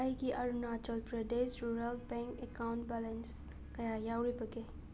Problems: background sounds at intervals